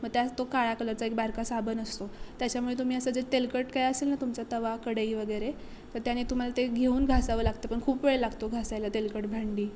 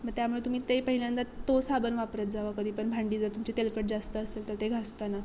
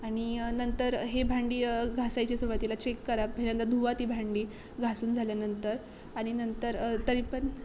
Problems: constant background noise, background conversations at intervals